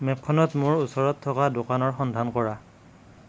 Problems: constant background noise